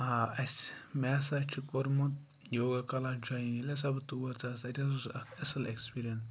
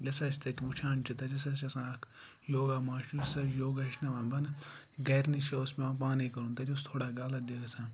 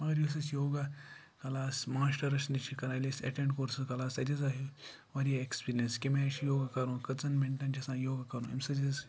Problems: low volume